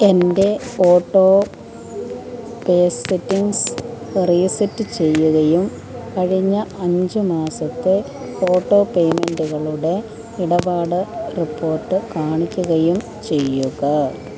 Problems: continuous background conversations